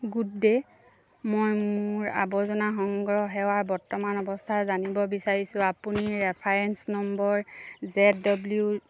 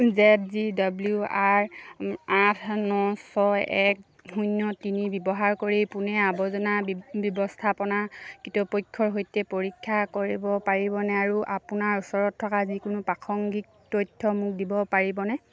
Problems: none marked